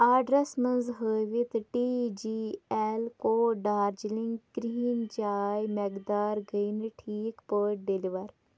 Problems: none marked